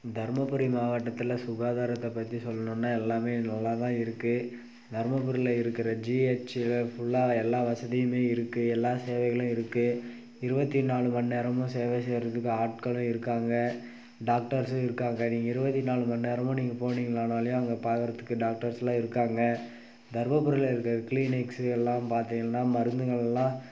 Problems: none marked